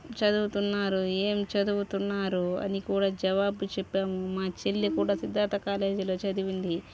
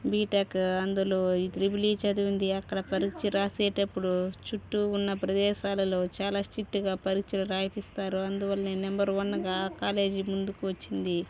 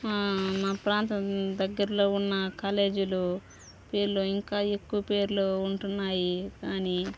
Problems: constant background noise, background conversations at intervals